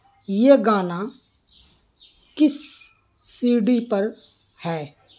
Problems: background sounds at intervals